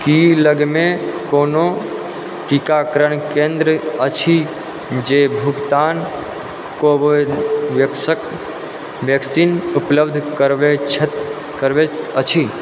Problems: constant background noise